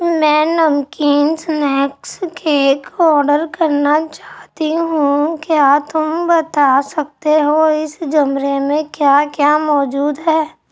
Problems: background sounds at intervals